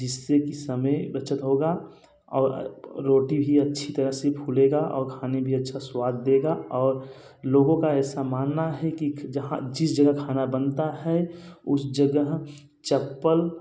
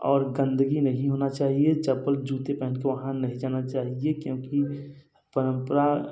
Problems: none marked